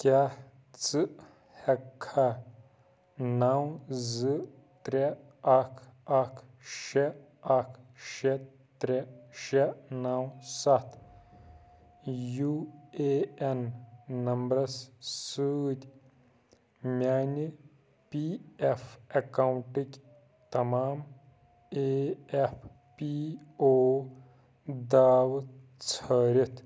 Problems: none marked